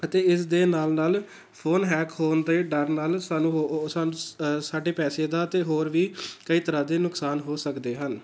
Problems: background sounds at intervals